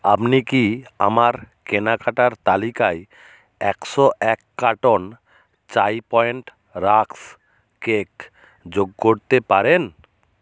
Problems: background sounds at intervals